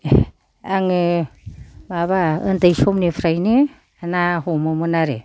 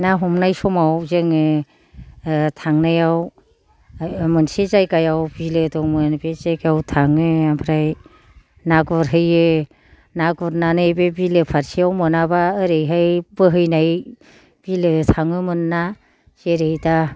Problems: low volume